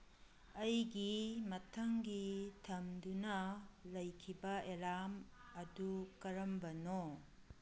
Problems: none marked